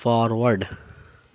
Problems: background sounds at intervals